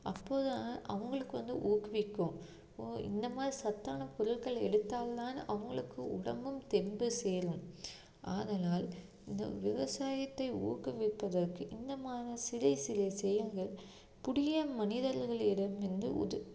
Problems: low volume